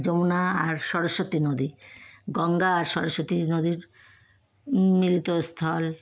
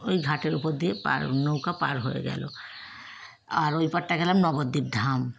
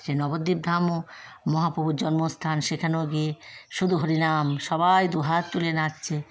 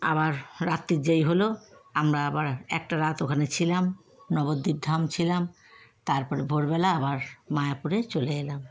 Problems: constant background noise, background conversations at intervals